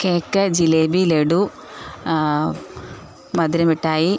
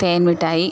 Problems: constant background noise